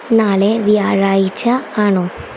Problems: constant background noise